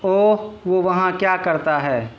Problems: constant background noise